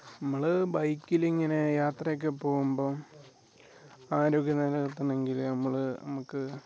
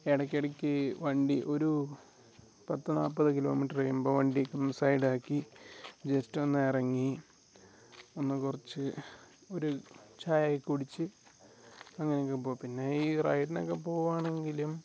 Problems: none marked